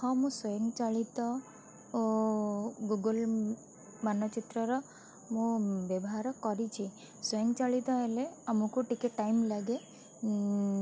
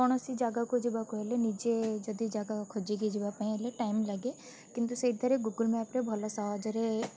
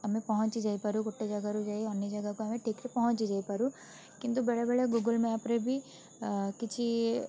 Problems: constant background noise, continuous background conversations